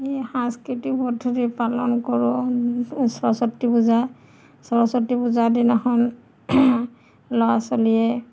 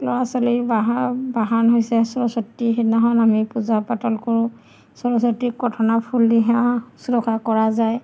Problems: none marked